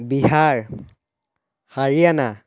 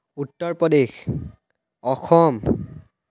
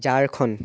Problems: background sounds at intervals